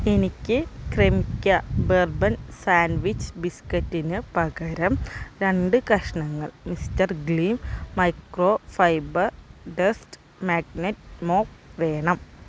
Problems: background sounds at intervals